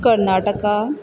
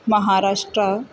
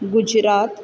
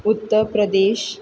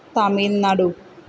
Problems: background sounds at intervals